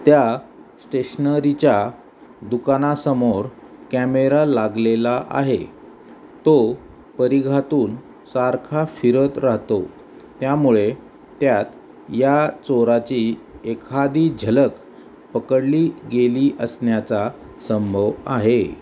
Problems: none marked